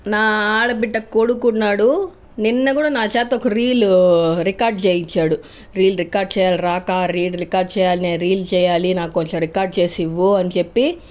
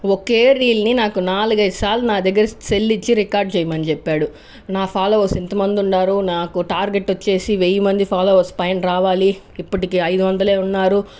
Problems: background sounds at intervals